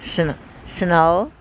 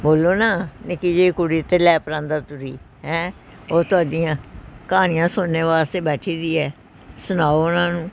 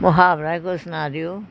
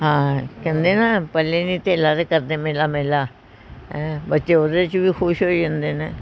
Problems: background sounds at intervals